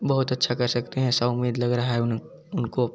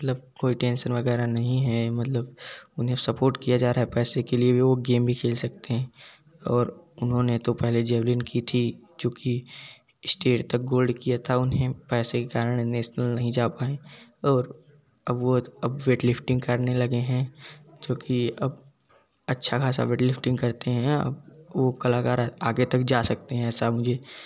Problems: background sounds at intervals, background conversations at intervals